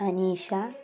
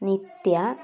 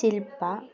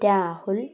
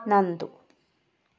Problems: constant background noise